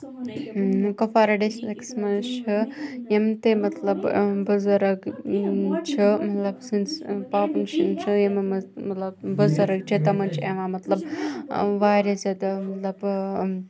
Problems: background sounds at intervals, background conversations at intervals